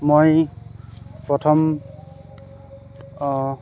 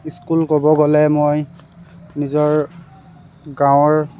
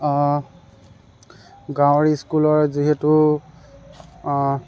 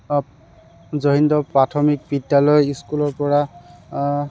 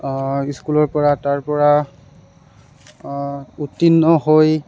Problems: background sounds at intervals